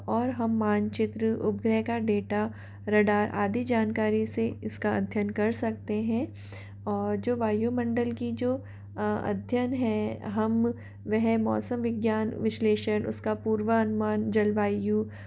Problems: constant background noise